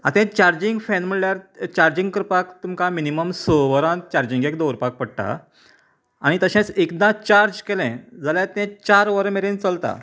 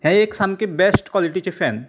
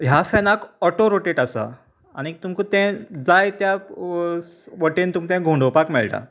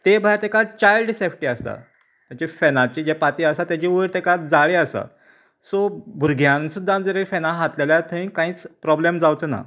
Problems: none marked